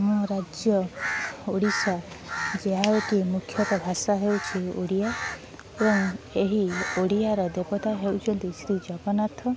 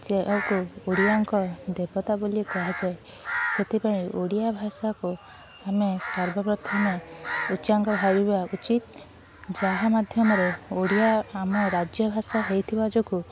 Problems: none marked